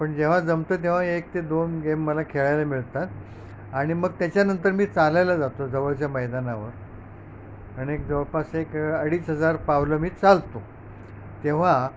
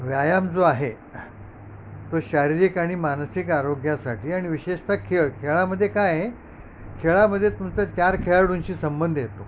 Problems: none marked